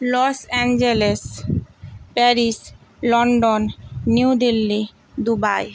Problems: constant background noise